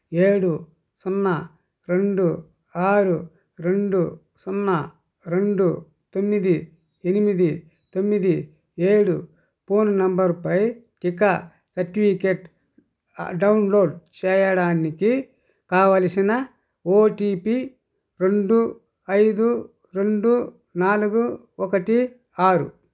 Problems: constant background noise